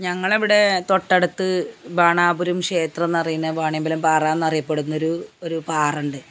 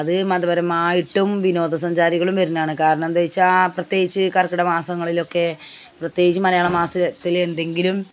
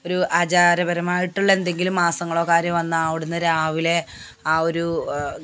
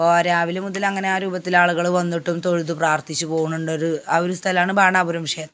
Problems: background sounds at intervals